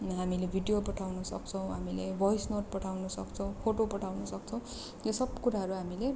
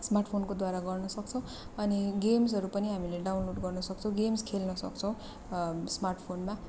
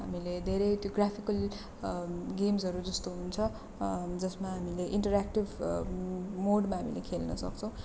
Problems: none marked